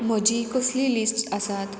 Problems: constant background noise